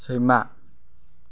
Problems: none marked